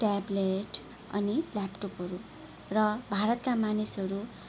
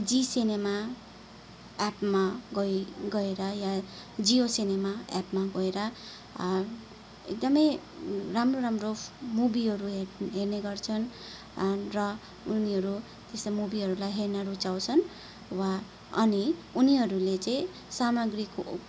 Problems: none marked